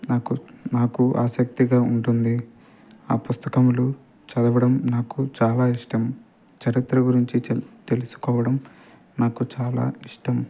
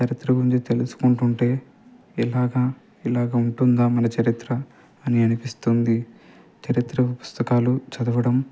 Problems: constant background noise